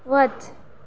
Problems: none marked